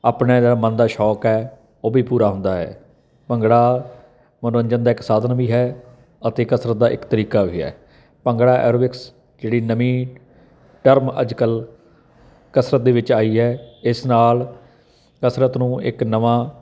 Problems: constant background noise